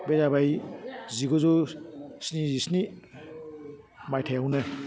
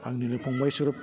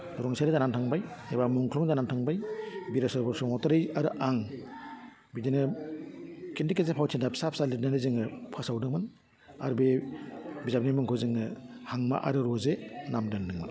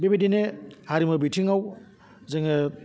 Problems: low volume